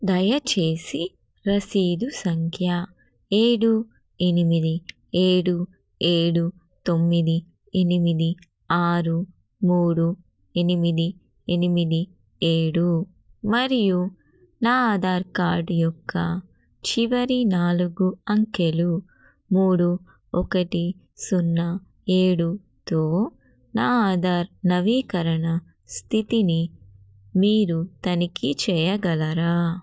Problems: none marked